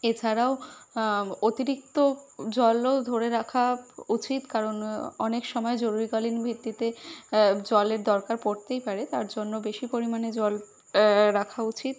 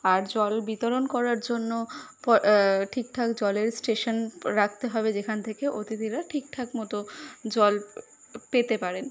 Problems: constant background noise